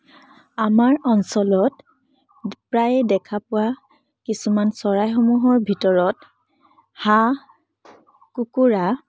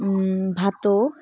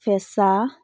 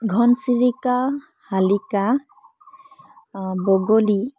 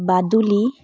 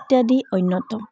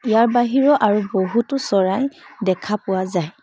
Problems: background sounds at intervals